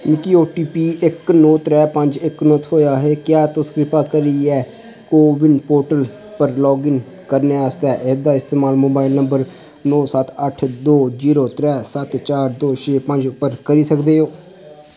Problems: constant background noise